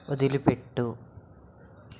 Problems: none marked